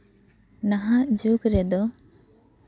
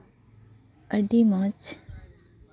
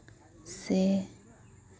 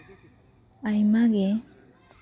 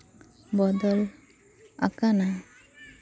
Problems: background sounds at intervals, background conversations at intervals